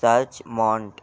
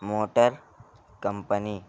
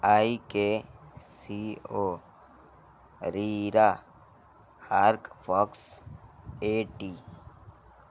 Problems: constant background noise